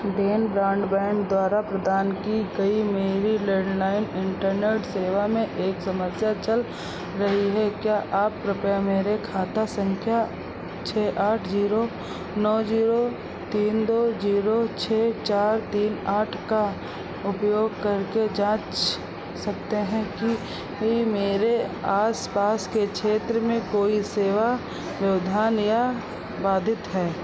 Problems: none marked